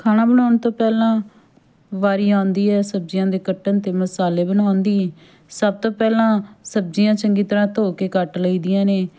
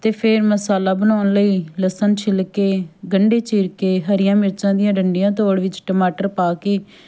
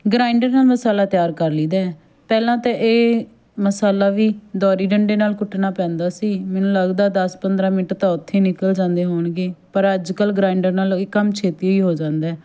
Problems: background conversations at intervals